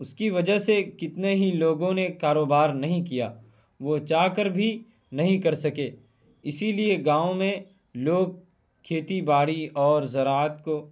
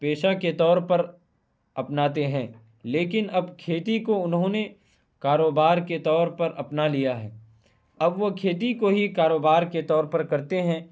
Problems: none marked